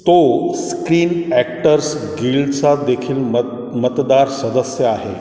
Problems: background sounds at intervals